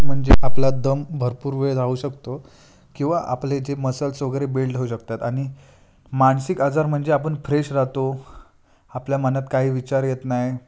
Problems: background sounds at intervals